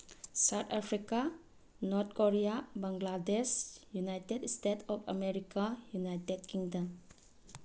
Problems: low volume